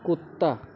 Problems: constant background noise